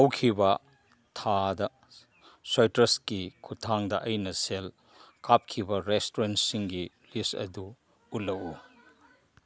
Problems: background sounds at intervals